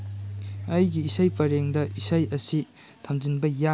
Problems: low volume